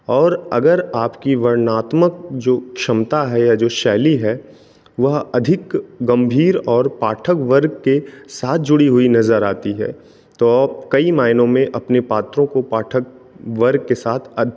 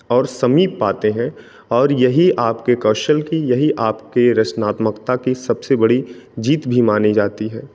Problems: none marked